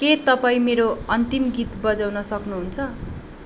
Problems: background sounds at intervals